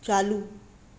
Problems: constant background noise